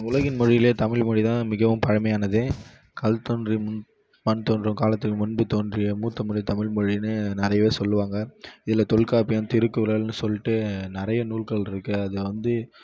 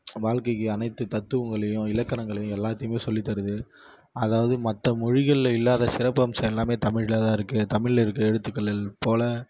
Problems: low volume